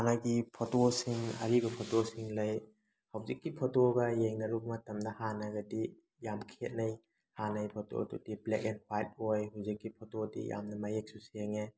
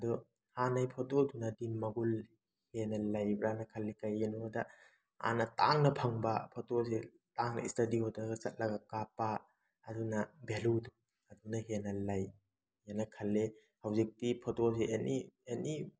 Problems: none marked